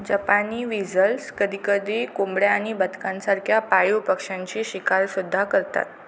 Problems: constant background noise